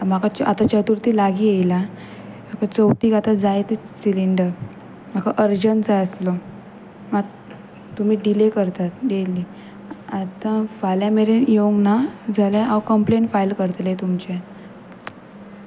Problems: none marked